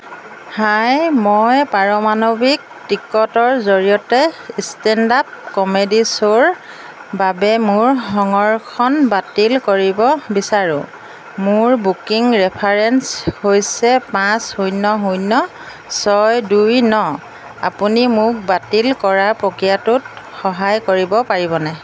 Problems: none marked